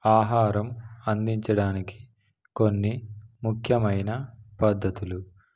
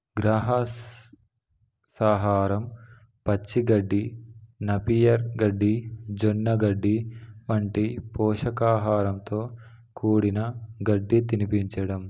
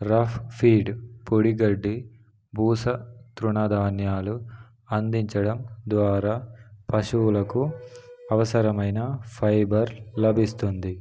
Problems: background sounds at intervals